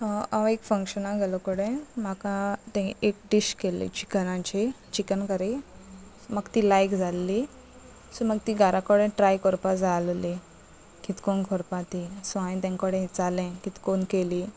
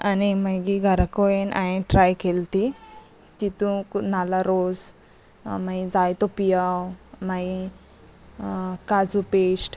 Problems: none marked